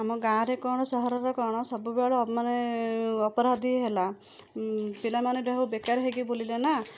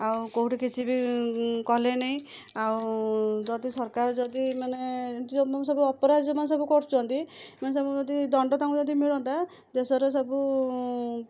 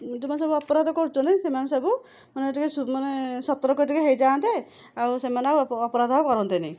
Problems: none marked